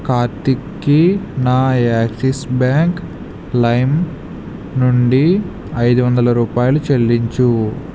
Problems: constant background noise